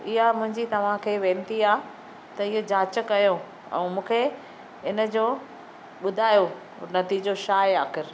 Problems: none marked